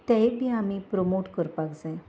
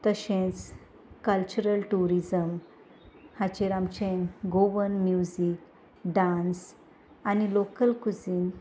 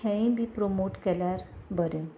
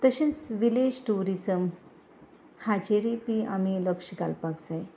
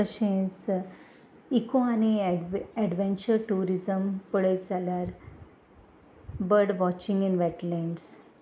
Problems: constant background noise